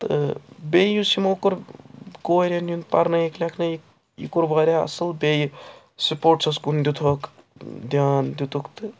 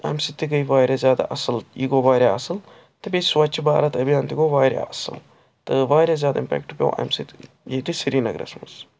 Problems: constant background noise